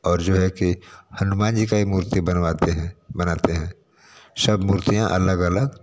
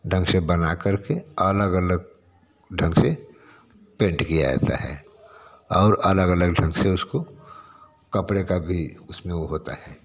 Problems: constant background noise